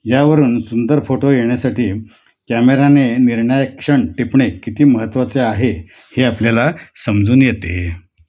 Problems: constant background noise, background conversations at intervals